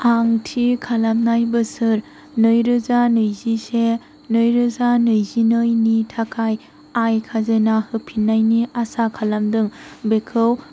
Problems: constant background noise